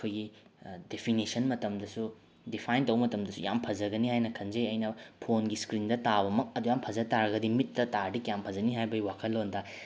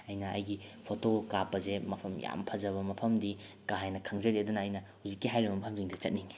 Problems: background sounds at intervals